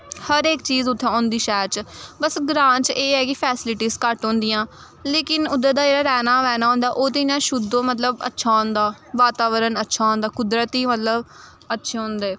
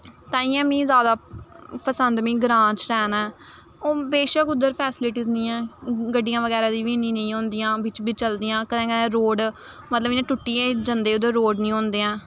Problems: none marked